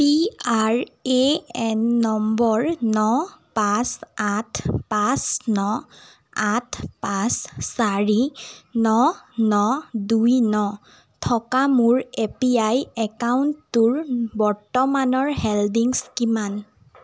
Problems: none marked